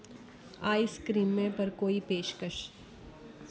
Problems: background sounds at intervals